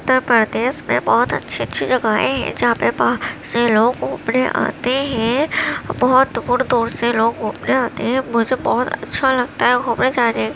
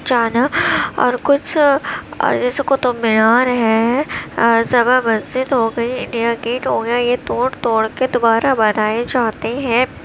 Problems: constant background noise